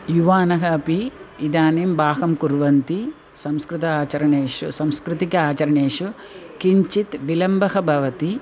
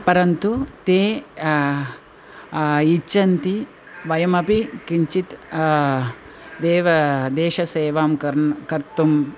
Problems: constant background noise